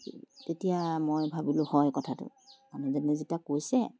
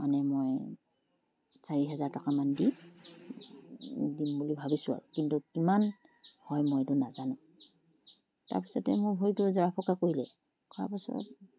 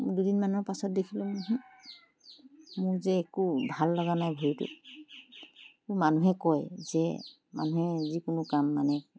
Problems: constant background noise